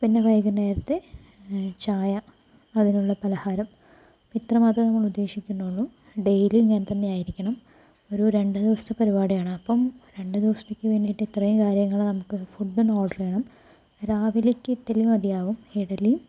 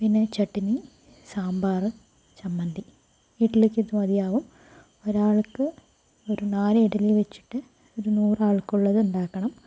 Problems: low volume